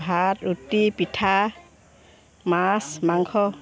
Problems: none marked